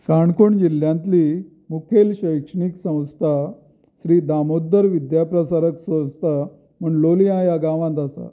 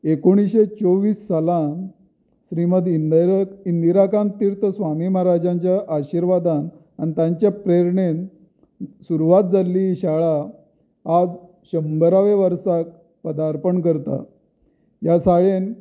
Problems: none marked